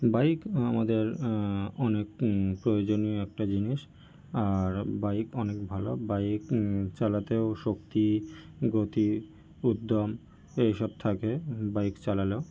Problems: background sounds at intervals